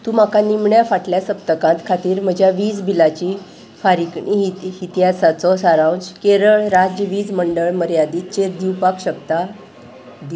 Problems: background sounds at intervals